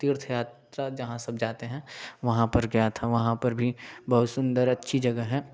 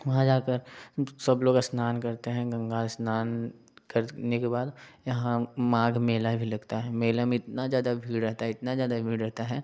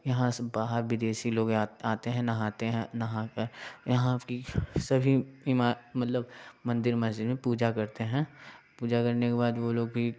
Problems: background sounds at intervals, background conversations at intervals